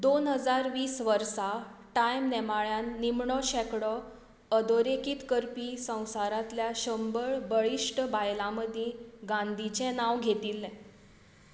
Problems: none marked